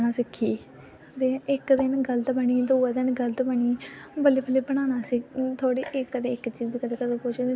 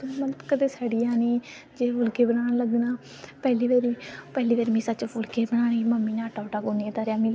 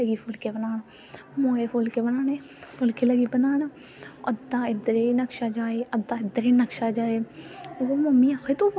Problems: constant background noise